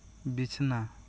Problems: constant background noise